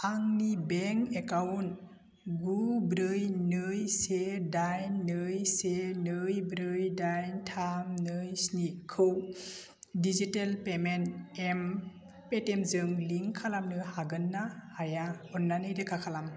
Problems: constant background noise